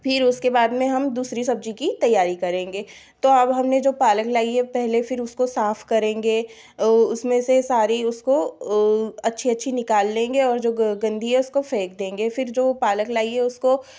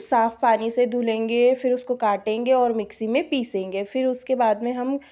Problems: background sounds at intervals